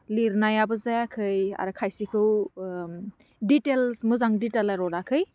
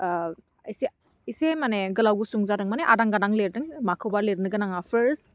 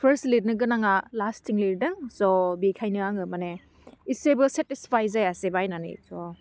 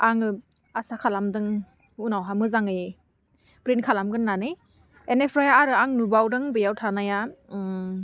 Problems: none marked